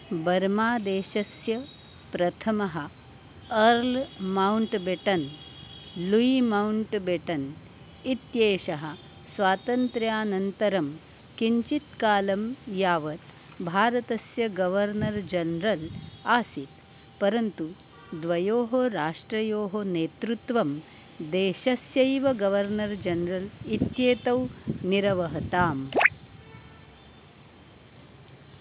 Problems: constant background noise